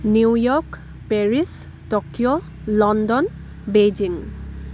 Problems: none marked